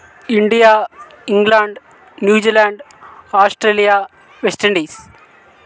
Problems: constant background noise